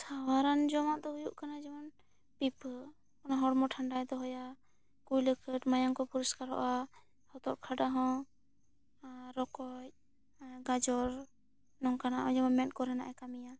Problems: none marked